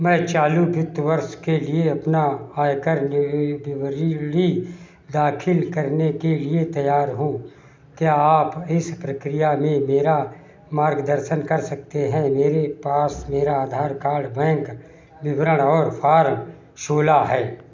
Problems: none marked